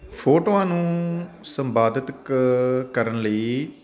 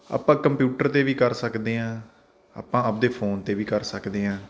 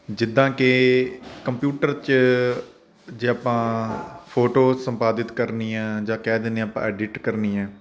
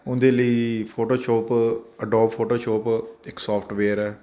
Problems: none marked